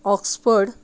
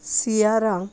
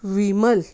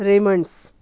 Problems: background sounds at intervals